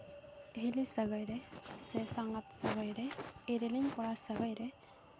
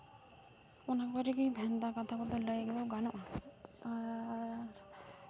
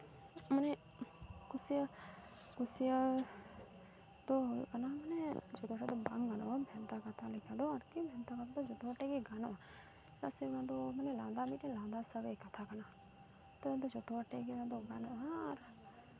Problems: constant background noise, continuous background conversations, low volume